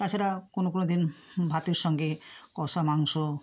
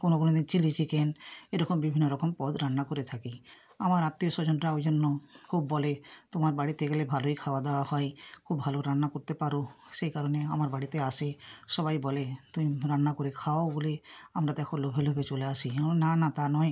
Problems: background sounds at intervals